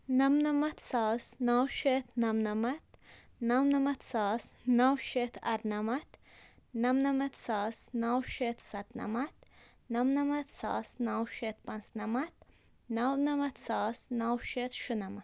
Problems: none marked